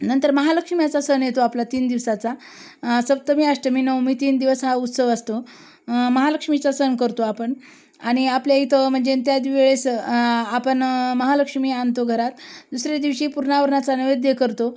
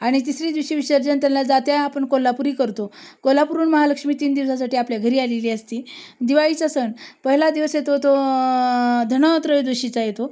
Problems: constant background noise